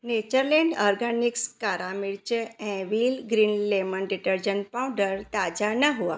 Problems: none marked